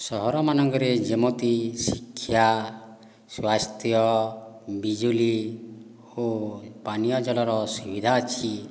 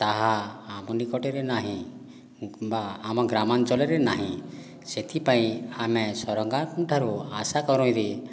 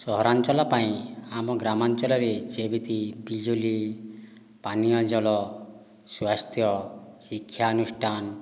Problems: background sounds at intervals